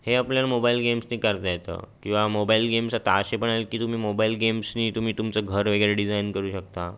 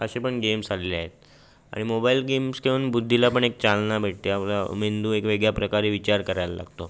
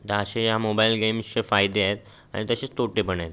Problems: constant background noise